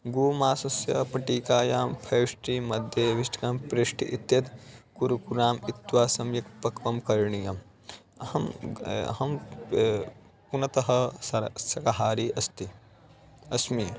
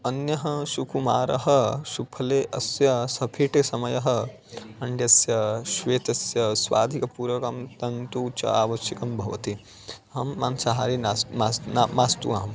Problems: constant background noise, background conversations at intervals